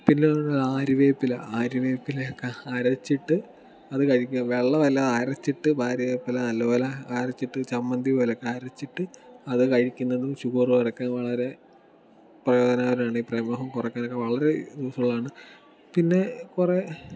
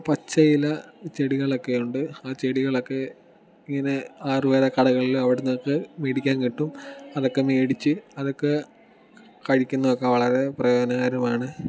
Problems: background sounds at intervals